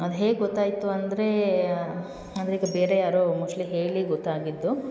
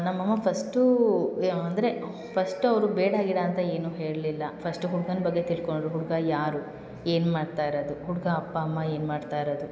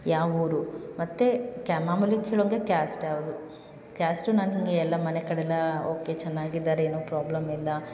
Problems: none marked